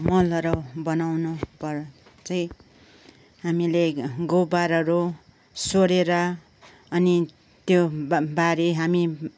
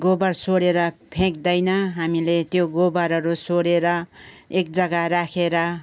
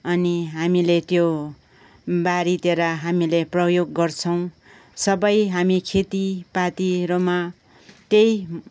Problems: background conversations at intervals